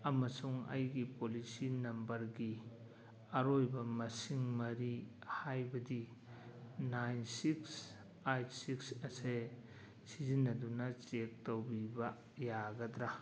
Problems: background sounds at intervals